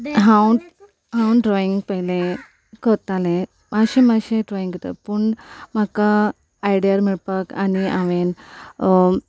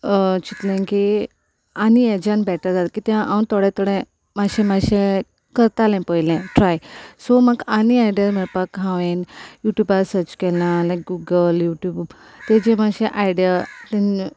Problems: constant background noise